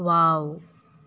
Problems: none marked